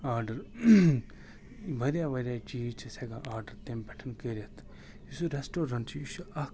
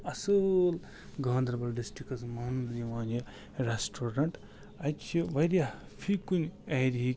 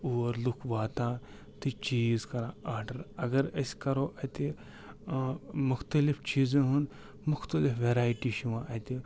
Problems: constant background noise